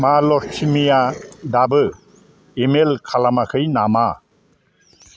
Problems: constant background noise